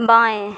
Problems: constant background noise